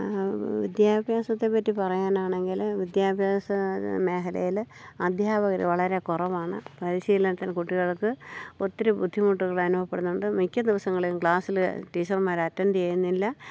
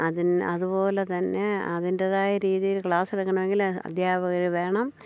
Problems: low volume